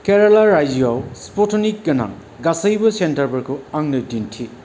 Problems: none marked